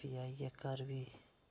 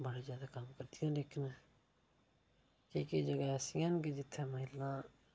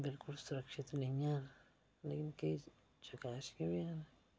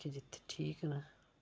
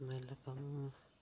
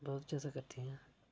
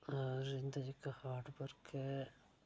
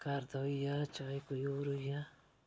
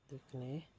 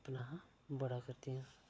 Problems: low volume